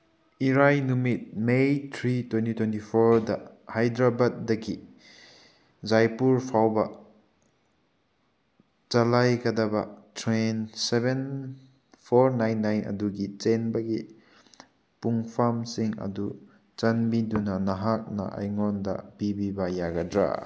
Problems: none marked